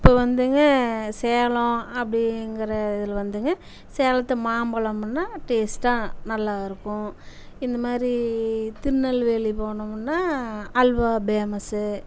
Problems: none marked